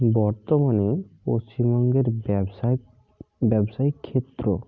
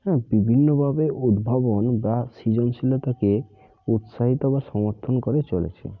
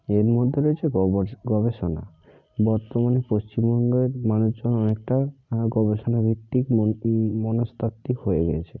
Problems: constant background noise